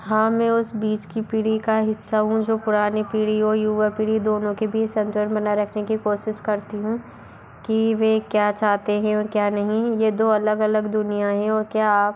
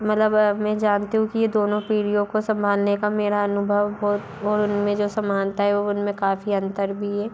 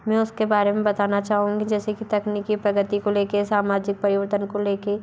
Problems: none marked